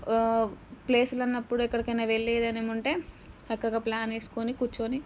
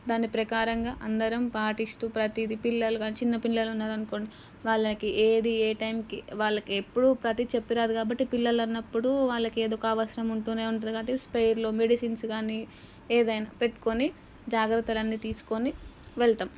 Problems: background sounds at intervals